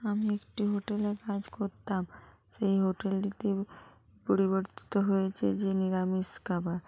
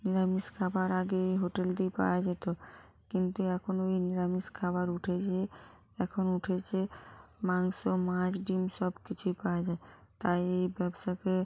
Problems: constant background noise